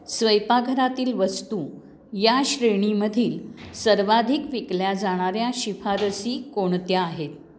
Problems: background conversations at intervals